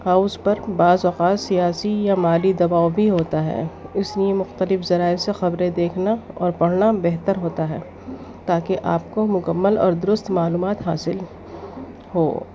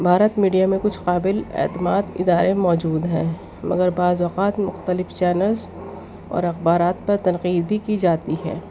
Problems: constant background noise, low volume